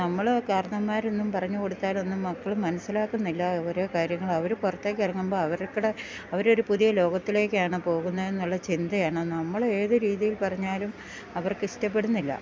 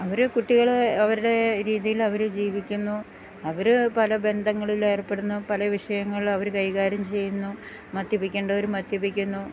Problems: background sounds at intervals